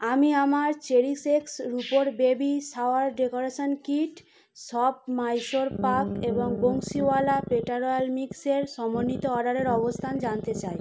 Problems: constant background noise